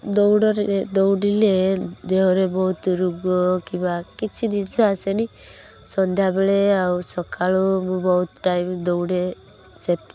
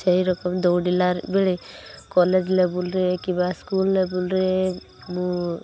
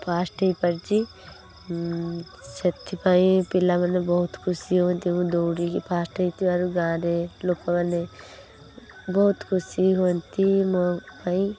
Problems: constant background noise